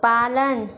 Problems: constant background noise